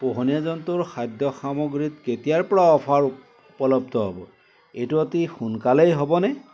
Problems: constant background noise